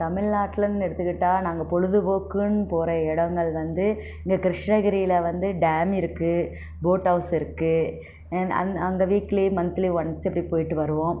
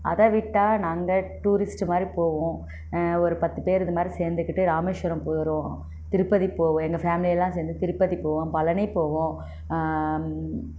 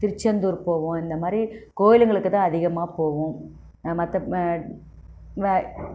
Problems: background sounds at intervals